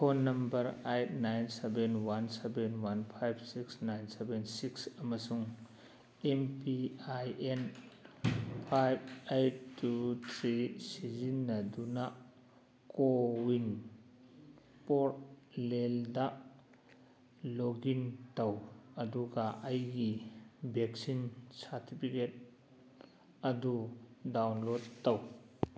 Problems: background conversations at intervals